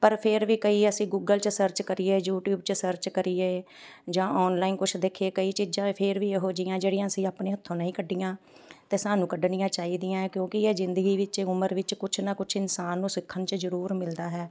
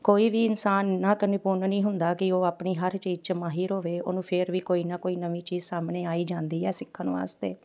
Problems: background sounds at intervals, background conversations at intervals